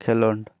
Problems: constant background noise